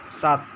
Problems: background sounds at intervals